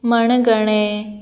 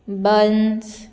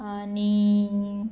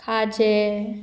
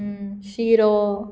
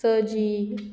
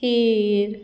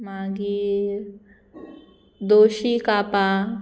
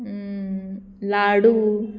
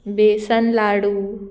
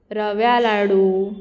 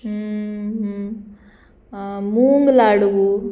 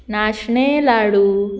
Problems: background sounds at intervals